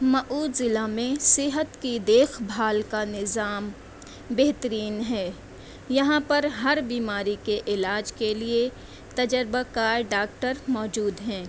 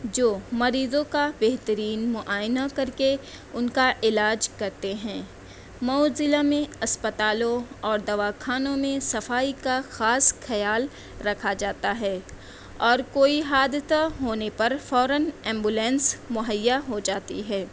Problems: constant background noise